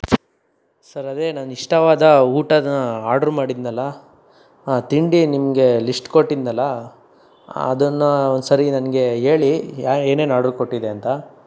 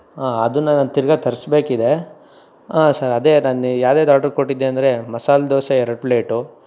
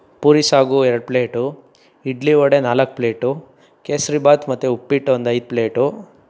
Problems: none marked